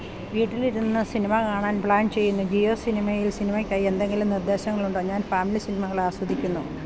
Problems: none marked